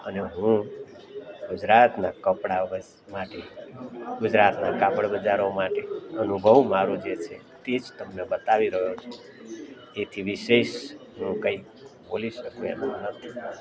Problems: background sounds at intervals, background conversations at intervals